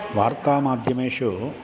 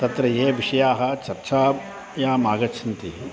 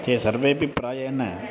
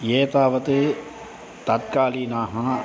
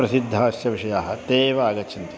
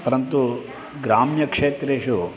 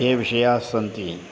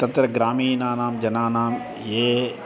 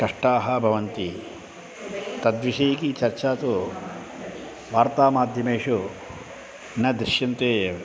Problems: constant background noise